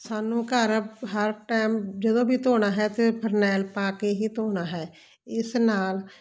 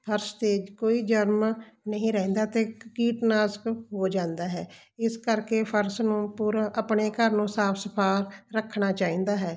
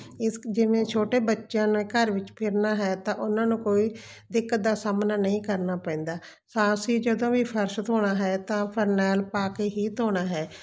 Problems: constant background noise